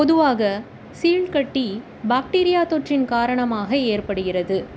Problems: constant background noise